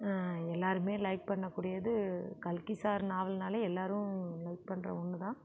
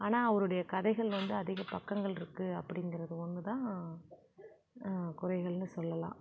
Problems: none marked